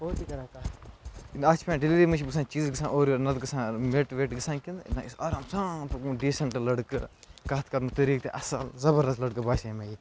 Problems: constant background noise, background conversations at intervals